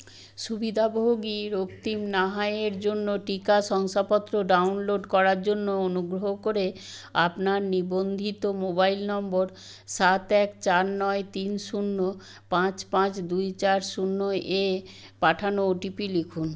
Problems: background sounds at intervals